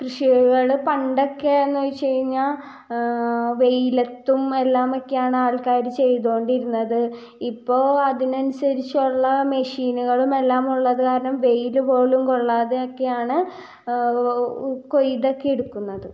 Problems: low volume